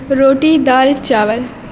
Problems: constant background noise